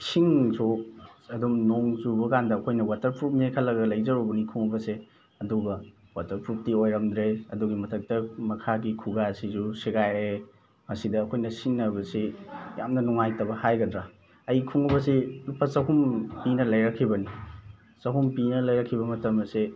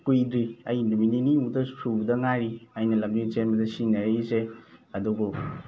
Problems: background sounds at intervals, background conversations at intervals